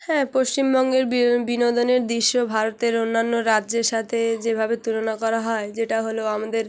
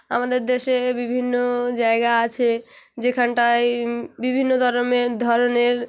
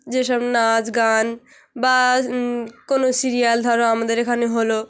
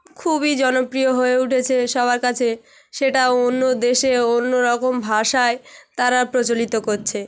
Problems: background sounds at intervals, background conversations at intervals